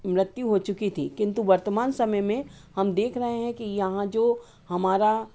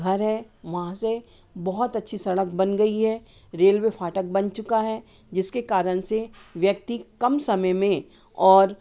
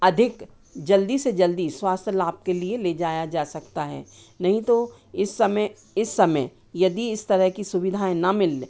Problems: constant background noise